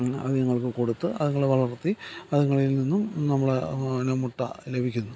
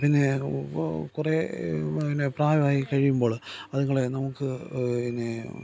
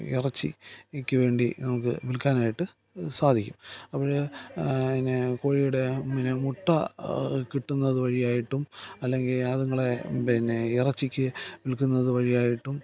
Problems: background sounds at intervals